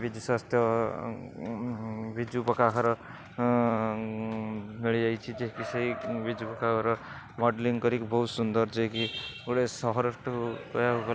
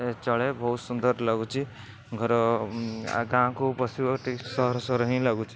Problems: none marked